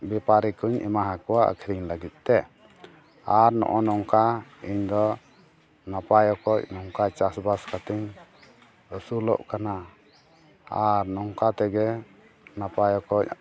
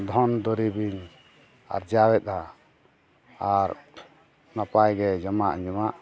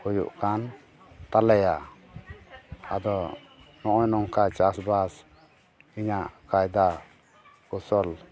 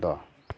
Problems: continuous background conversations